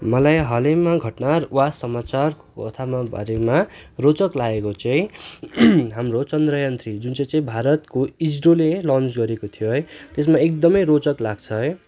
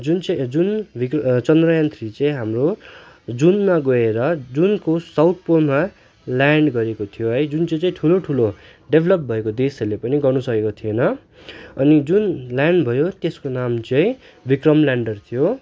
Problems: constant background noise